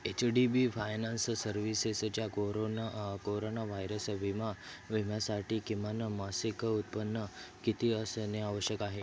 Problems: constant background noise, continuous background conversations